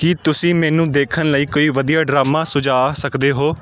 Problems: background sounds at intervals